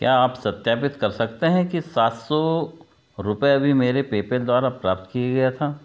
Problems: background sounds at intervals